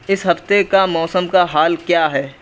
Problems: constant background noise